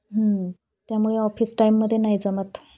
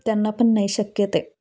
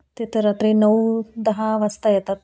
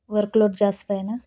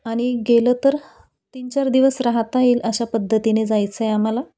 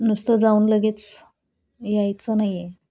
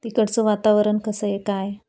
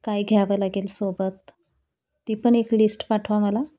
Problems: none marked